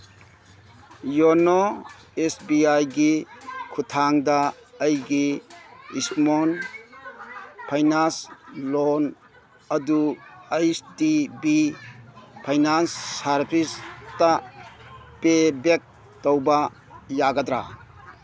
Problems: background sounds at intervals